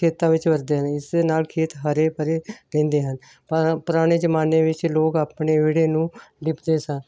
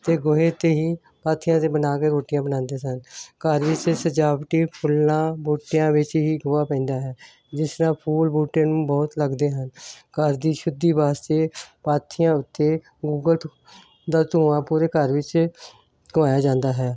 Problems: none marked